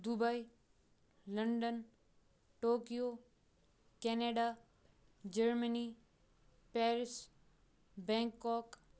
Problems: background sounds at intervals